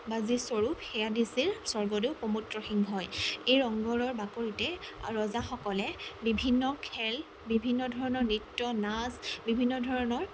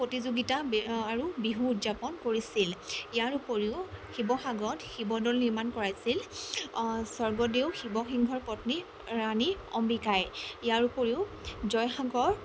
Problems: constant background noise